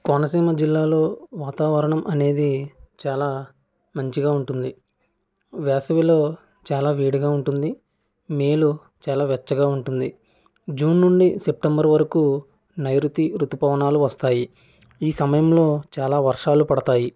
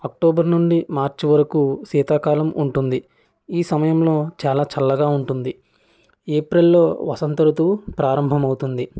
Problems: none marked